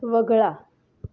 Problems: none marked